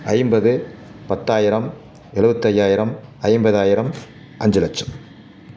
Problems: constant background noise